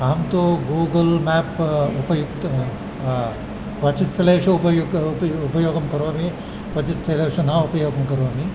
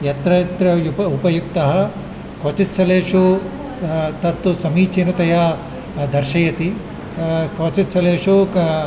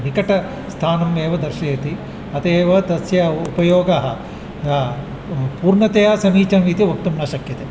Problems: constant background noise